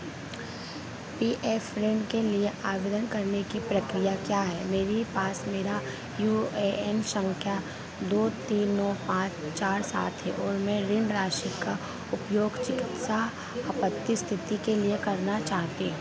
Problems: constant background noise